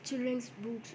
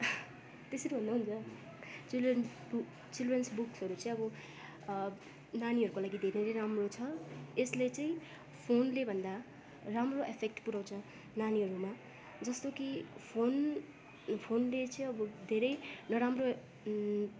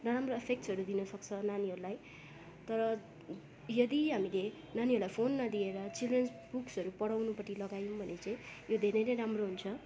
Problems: continuous background conversations